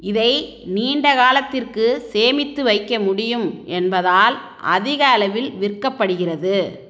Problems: none marked